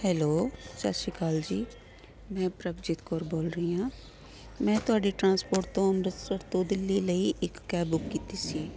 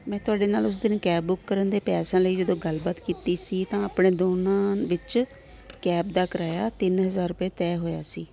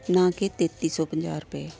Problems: none marked